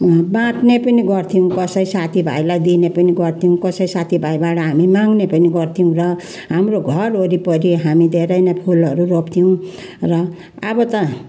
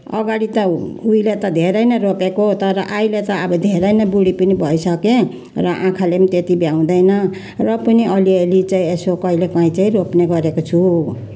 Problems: background sounds at intervals